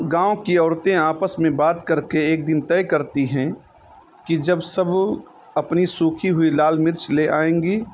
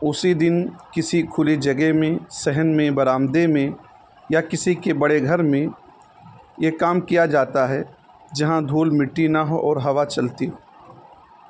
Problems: constant background noise